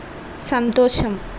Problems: constant background noise